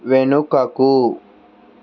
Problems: constant background noise